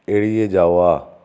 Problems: constant background noise